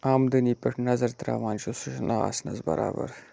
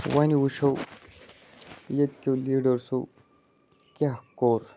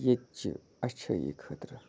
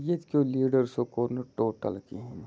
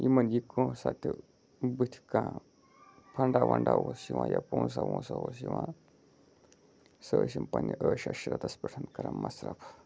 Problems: low volume